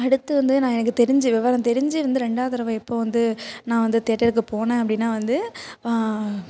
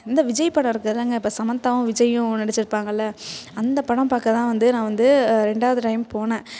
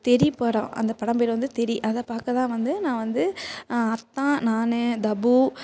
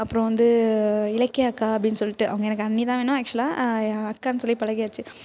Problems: constant background noise